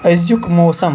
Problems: constant background noise